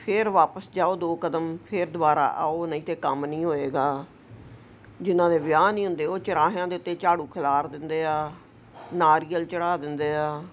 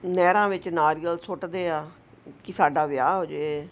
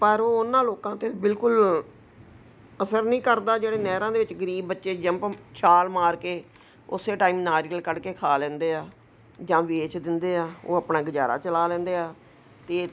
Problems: none marked